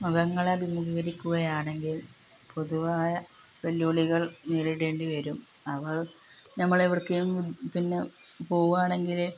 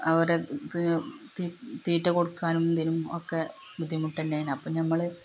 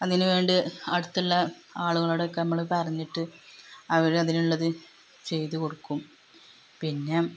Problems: constant background noise